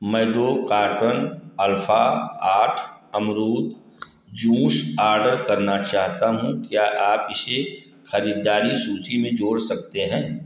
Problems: echo